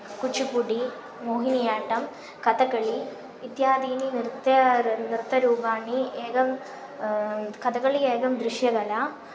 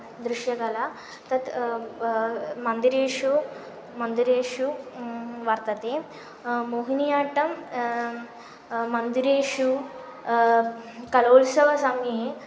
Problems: constant background noise